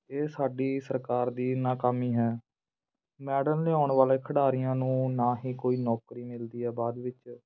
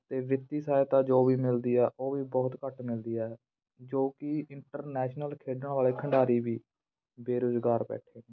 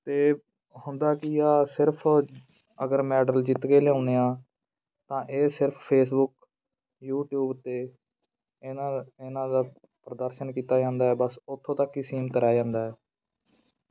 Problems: background sounds at intervals, background conversations at intervals